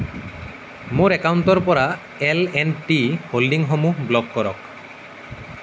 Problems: none marked